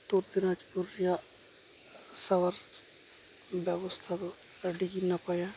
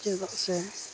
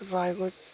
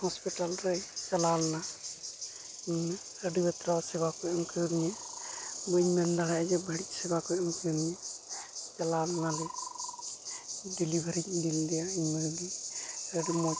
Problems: constant background noise, background conversations at intervals